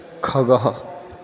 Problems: constant background noise